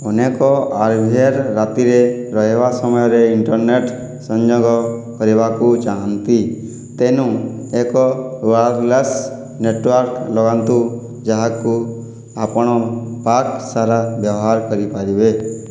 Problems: none marked